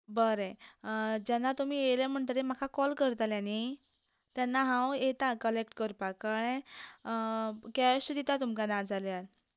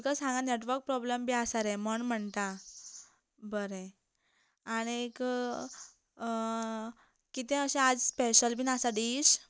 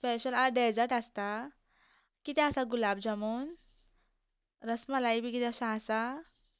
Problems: constant background noise